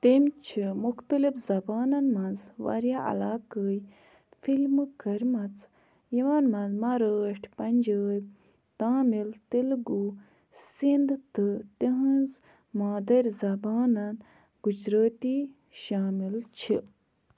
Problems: background sounds at intervals